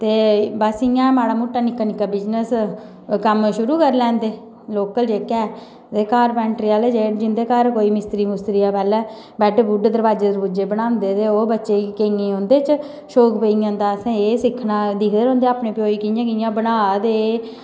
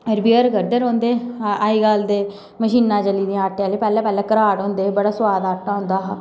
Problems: background sounds at intervals, echo